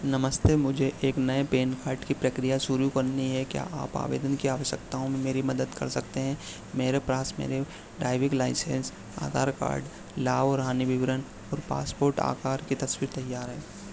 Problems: constant background noise